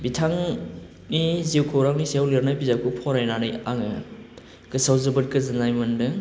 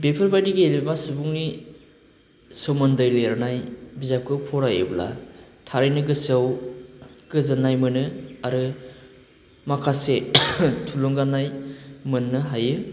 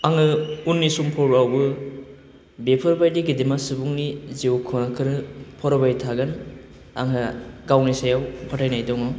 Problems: none marked